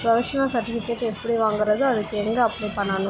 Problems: constant background noise, continuous background conversations